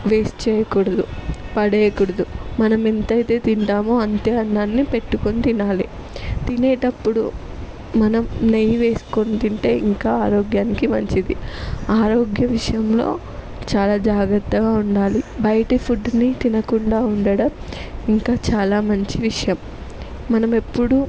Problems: none marked